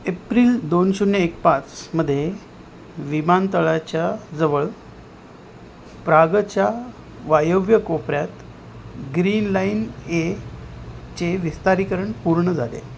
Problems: none marked